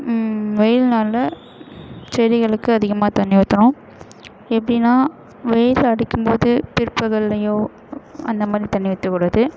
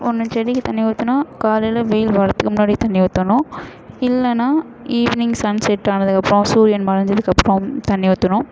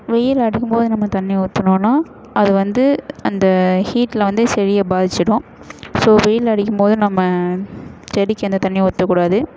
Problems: constant background noise, echo